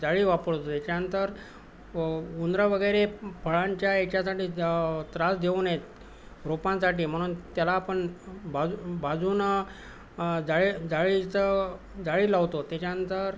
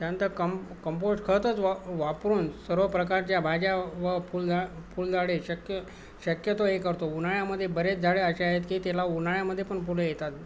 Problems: constant background noise